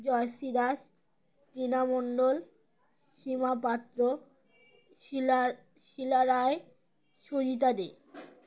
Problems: constant background noise